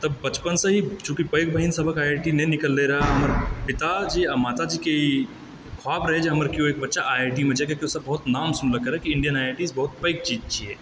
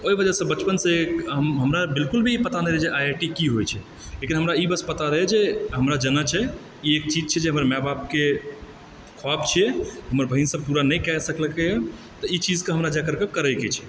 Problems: constant background noise